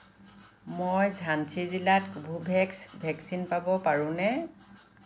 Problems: constant background noise